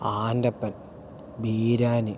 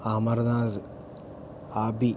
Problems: low volume